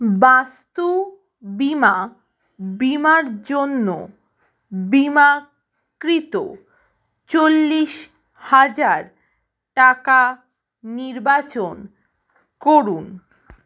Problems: none marked